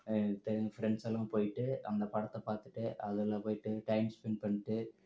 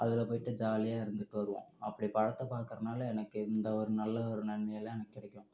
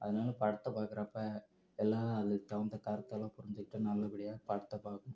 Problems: low volume